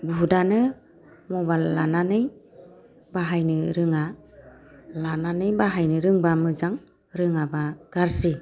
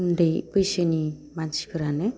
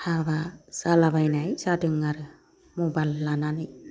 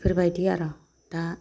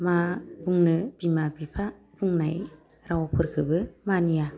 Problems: low volume